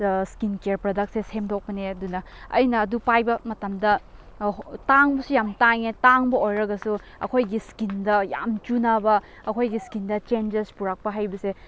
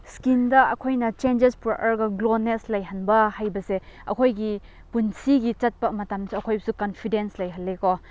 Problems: constant background noise